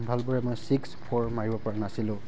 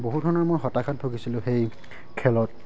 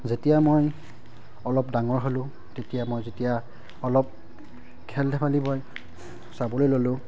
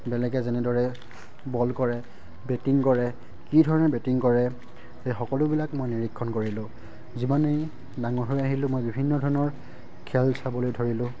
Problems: background sounds at intervals